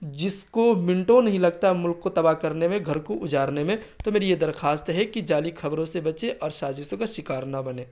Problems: constant background noise